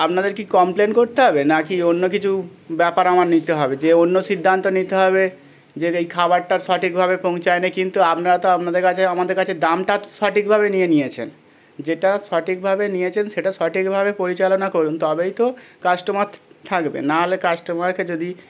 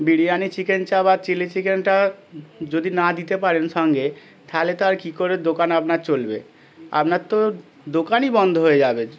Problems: constant background noise